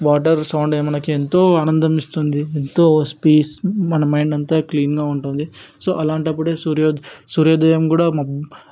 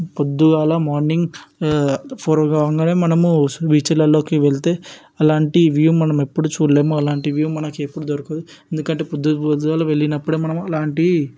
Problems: background sounds at intervals